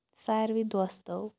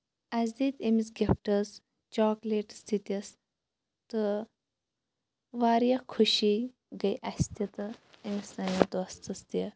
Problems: none marked